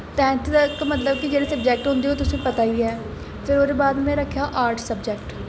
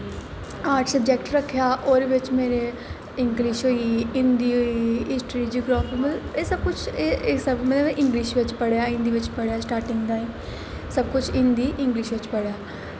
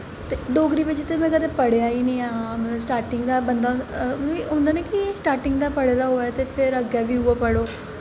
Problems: constant background noise, echo